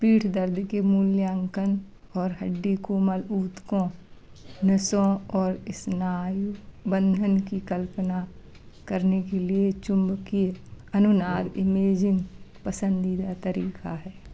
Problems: constant background noise